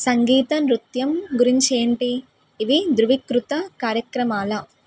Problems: background sounds at intervals